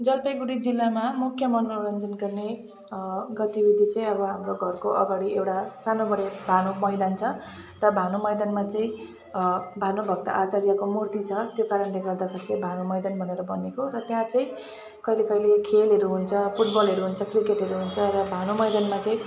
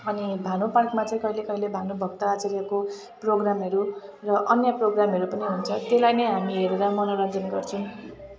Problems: constant background noise